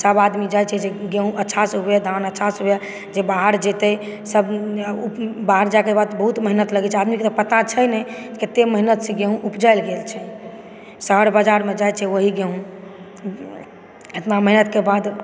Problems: background sounds at intervals, background conversations at intervals